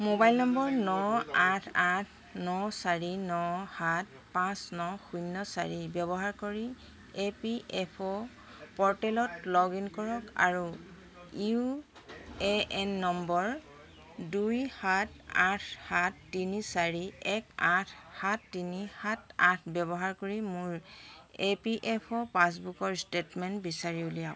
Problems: constant background noise, background conversations at intervals